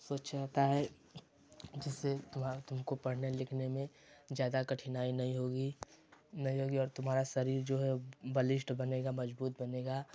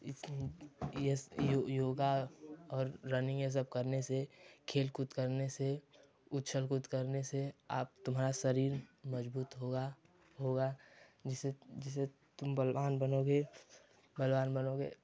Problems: low volume